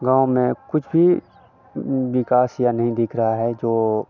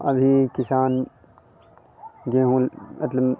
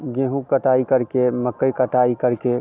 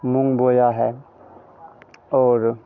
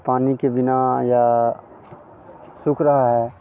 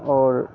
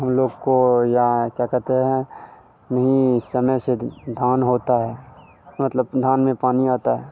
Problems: none marked